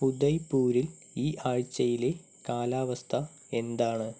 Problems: none marked